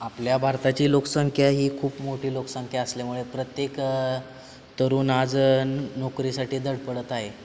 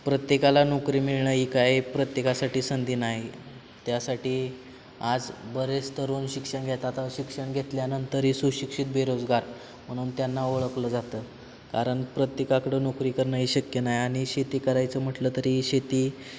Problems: constant background noise